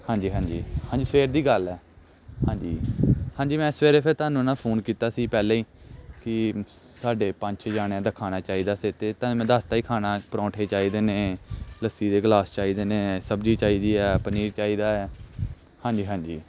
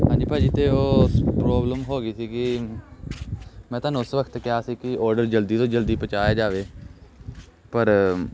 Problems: none marked